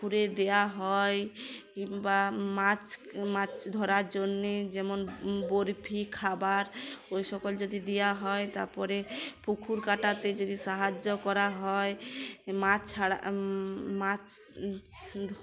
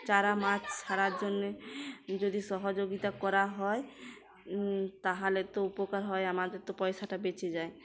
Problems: constant background noise, background conversations at intervals